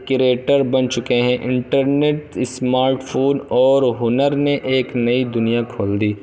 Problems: constant background noise